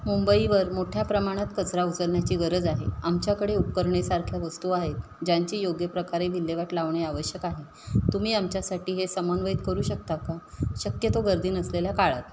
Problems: constant background noise